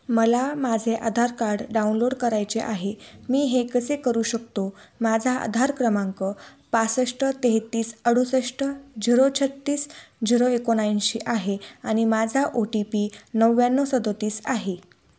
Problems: constant background noise